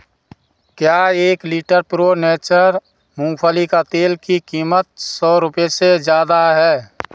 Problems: background sounds at intervals